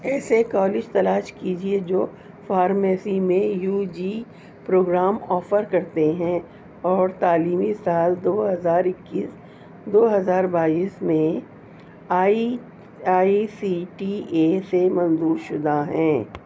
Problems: constant background noise